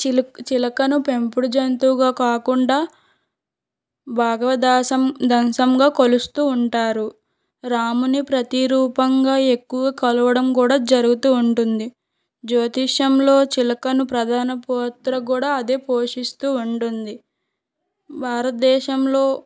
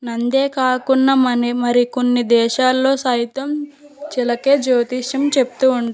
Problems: background sounds at intervals